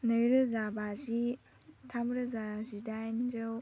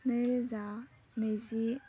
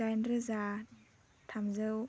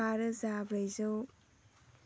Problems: low volume